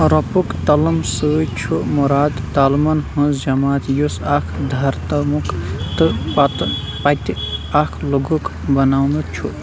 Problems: constant background noise, background conversations at intervals